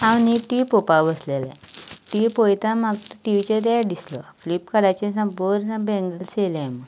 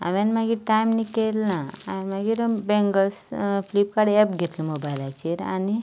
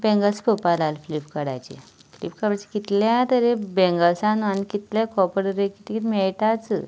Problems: constant background noise